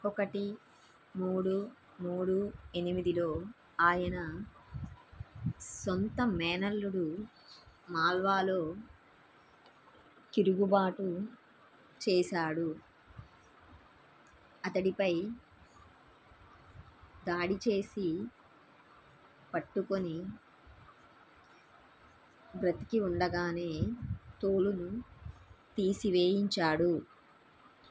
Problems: none marked